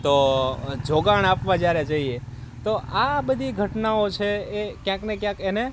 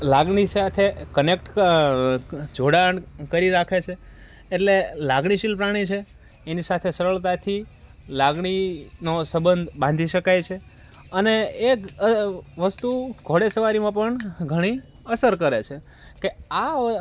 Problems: constant background noise